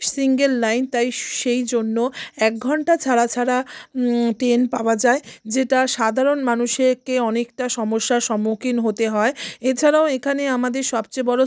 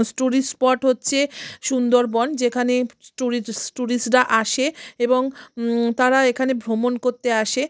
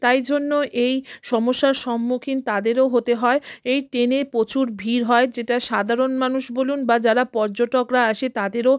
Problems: constant background noise